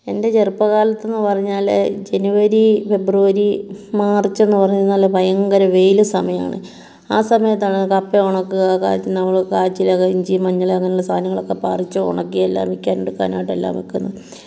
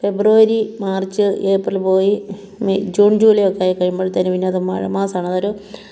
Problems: none marked